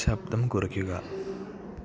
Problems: none marked